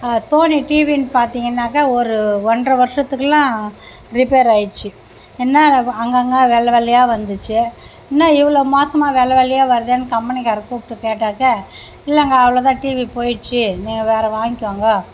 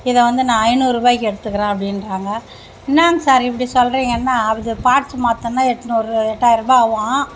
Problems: none marked